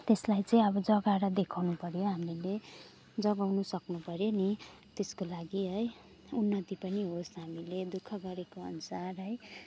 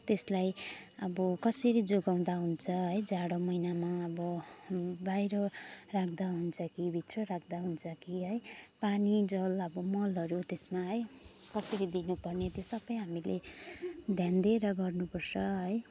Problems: none marked